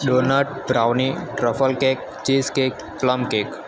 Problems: none marked